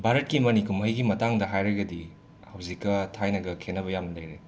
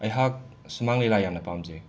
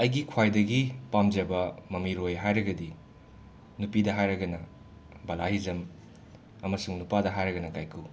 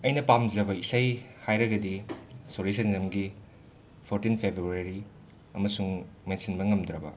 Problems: background sounds at intervals